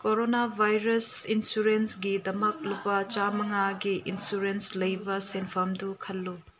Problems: background sounds at intervals